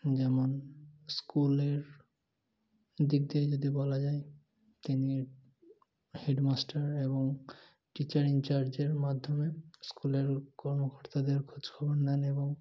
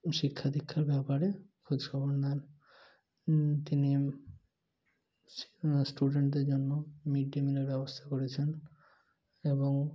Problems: none marked